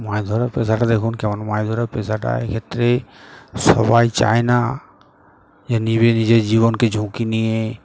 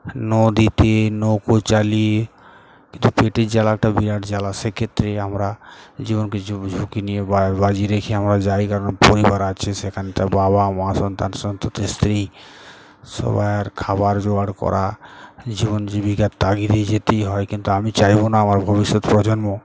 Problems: none marked